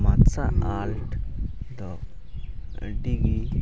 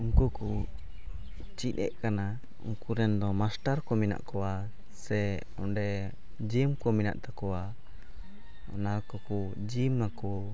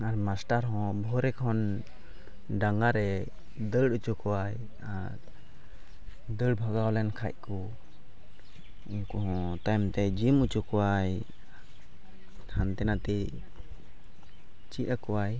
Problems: background sounds at intervals, low volume